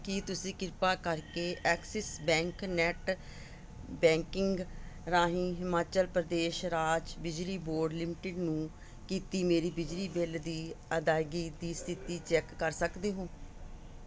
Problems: none marked